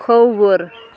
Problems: constant background noise